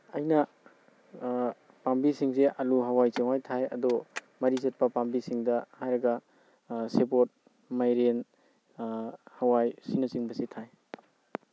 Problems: none marked